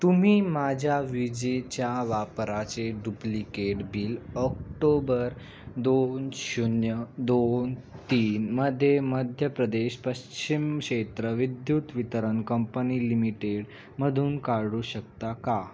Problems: constant background noise, background conversations at intervals